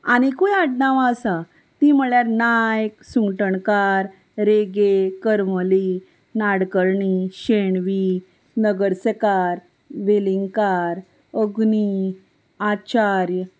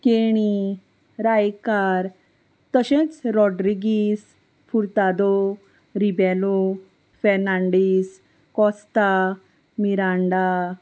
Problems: none marked